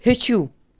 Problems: none marked